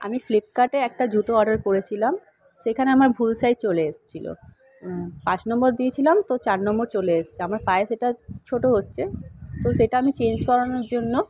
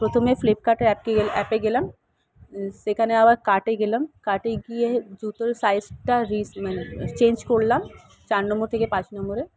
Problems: background sounds at intervals